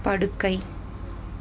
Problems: continuous background conversations